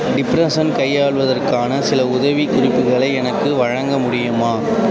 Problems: constant background noise